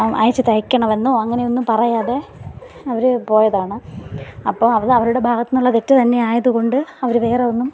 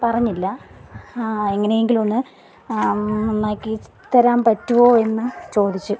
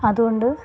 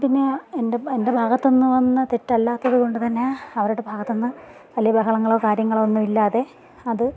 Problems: background sounds at intervals, background conversations at intervals